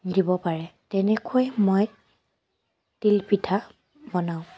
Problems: none marked